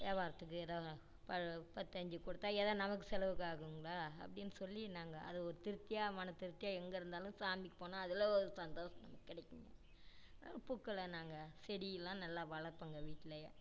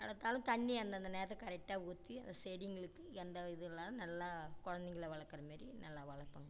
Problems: low volume